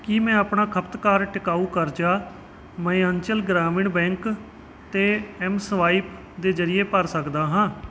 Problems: background sounds at intervals